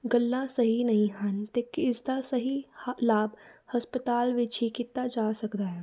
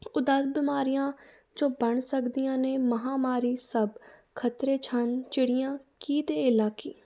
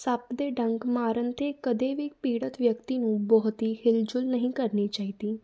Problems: background sounds at intervals